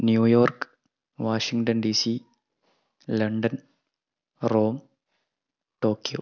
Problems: none marked